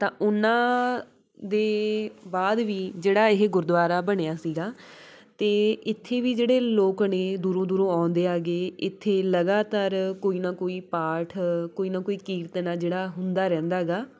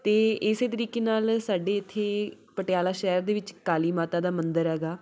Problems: background conversations at intervals